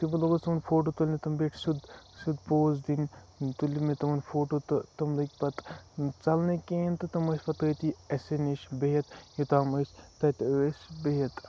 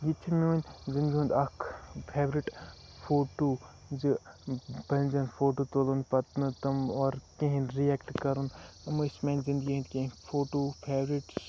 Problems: constant background noise, low volume